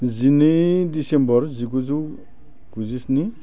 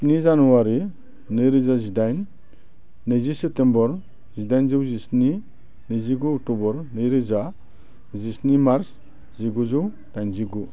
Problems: low volume